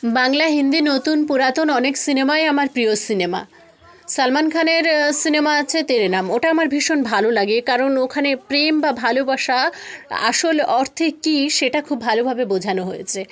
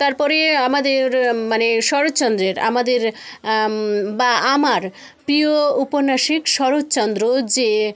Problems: constant background noise, continuous background conversations